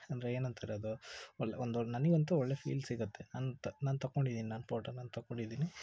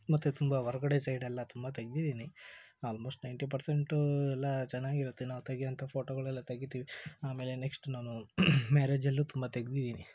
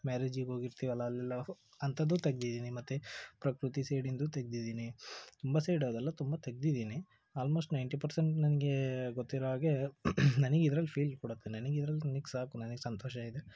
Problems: low volume